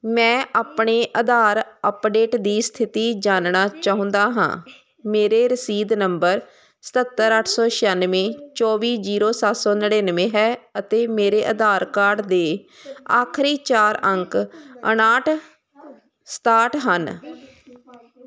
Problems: constant background noise